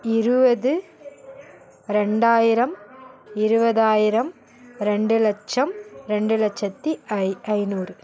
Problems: continuous background conversations